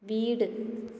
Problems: echo